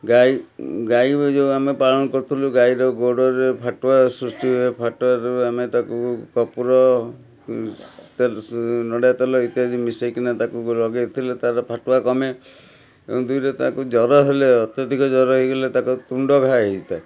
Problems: background conversations at intervals